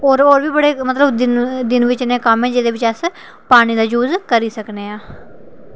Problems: none marked